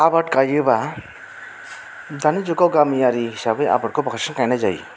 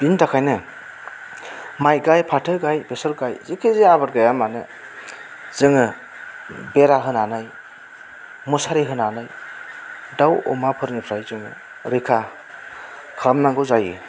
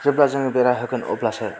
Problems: constant background noise